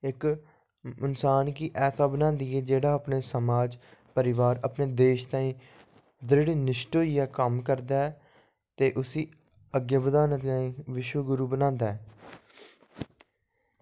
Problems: low volume